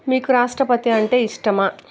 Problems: background sounds at intervals